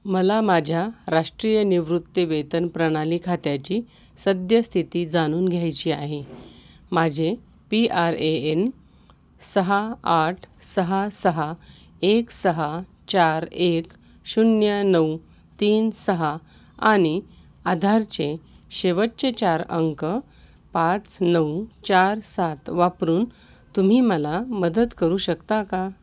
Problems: constant background noise, echo